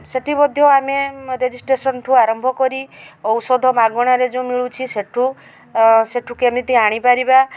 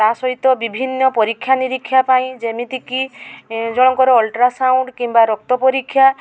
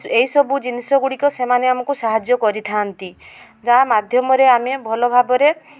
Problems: none marked